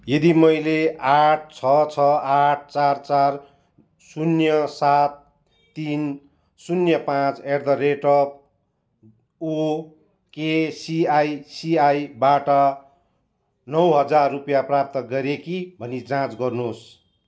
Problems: none marked